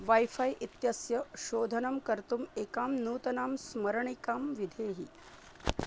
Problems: background sounds at intervals, low volume